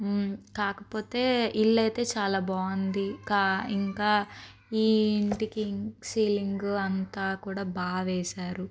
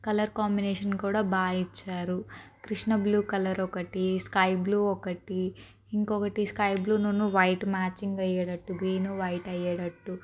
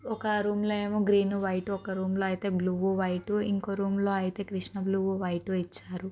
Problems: constant background noise